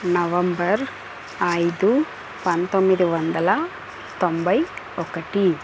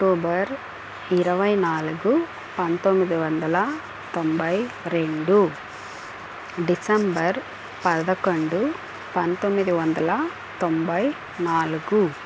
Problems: constant background noise